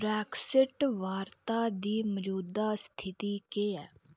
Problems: none marked